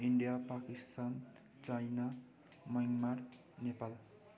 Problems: continuous background conversations